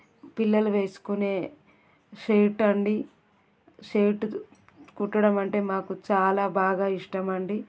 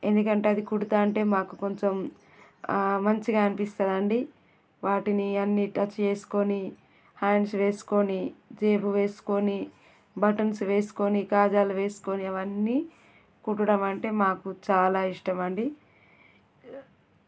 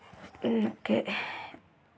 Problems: background sounds at intervals